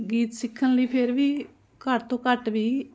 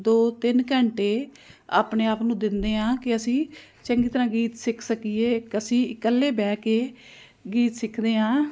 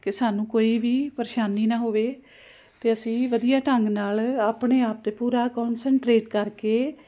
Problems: constant background noise